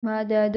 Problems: none marked